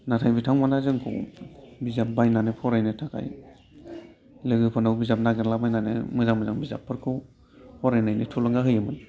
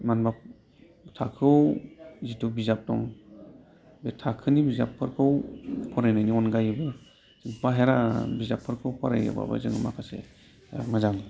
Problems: low volume